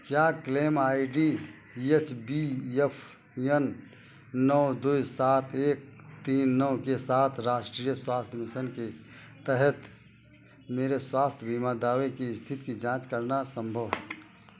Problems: none marked